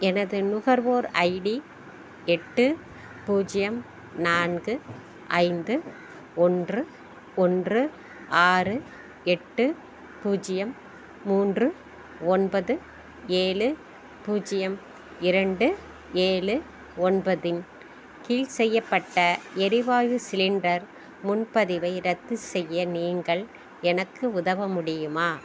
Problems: background sounds at intervals